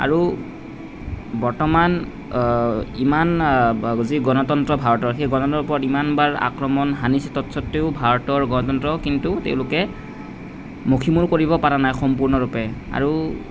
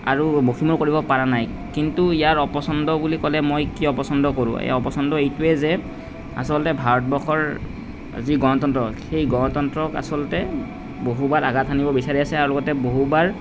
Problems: none marked